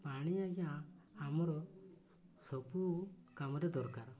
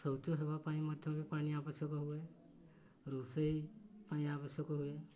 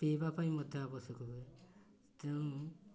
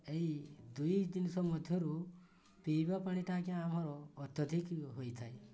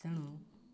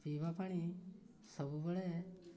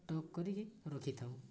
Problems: none marked